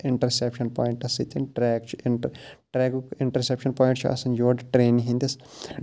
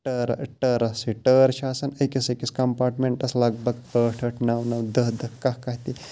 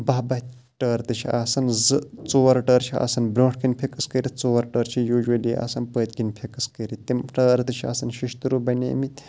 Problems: none marked